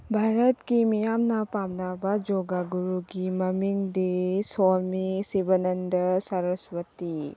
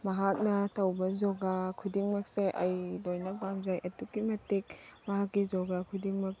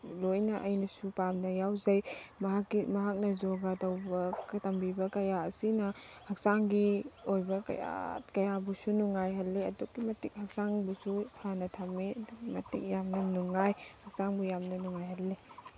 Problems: constant background noise, low volume